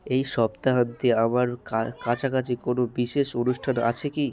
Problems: constant background noise, continuous background conversations